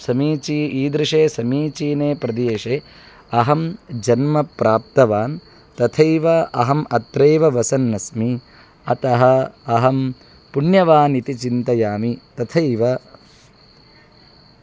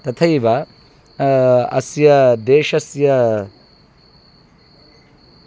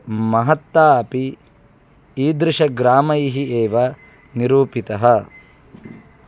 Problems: none marked